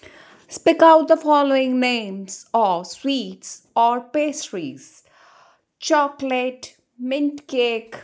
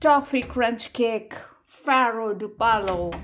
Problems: none marked